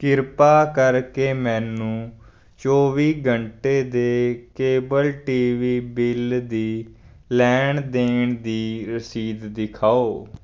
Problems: background sounds at intervals